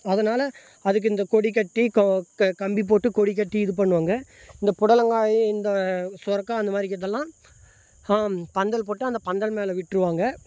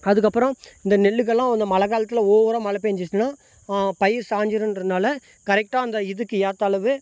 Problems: background sounds at intervals